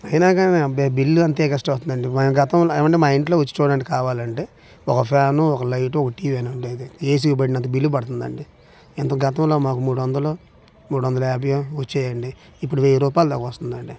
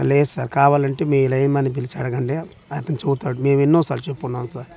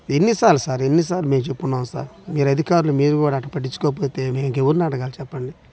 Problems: none marked